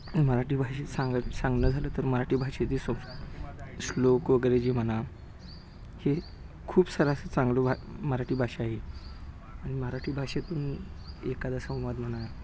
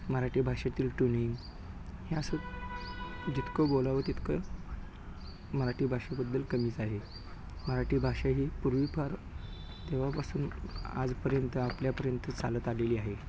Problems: constant background noise